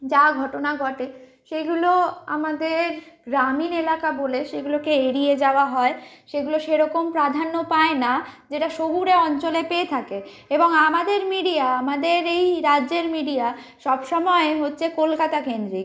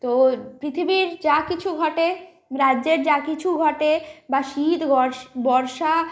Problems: constant background noise